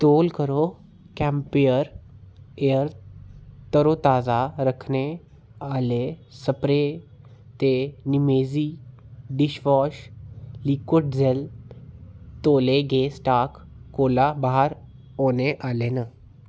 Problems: none marked